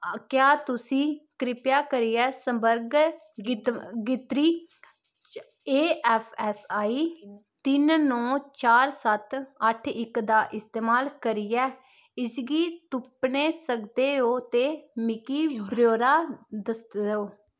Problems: constant background noise